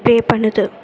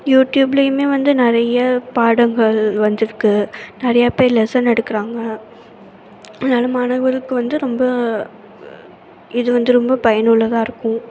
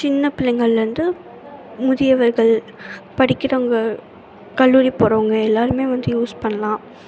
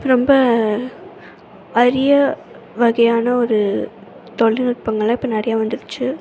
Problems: constant background noise, continuous background conversations